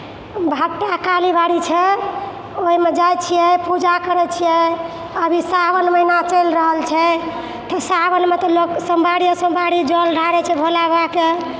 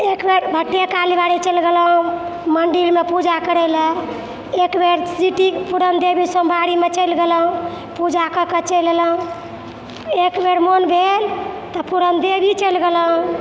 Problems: background sounds at intervals